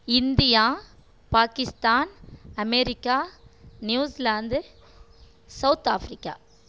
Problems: none marked